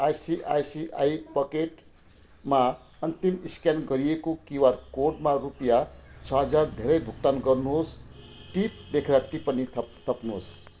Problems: constant background noise